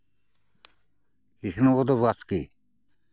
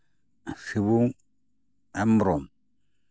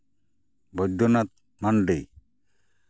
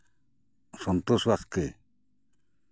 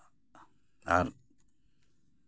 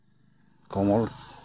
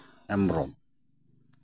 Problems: constant background noise, background conversations at intervals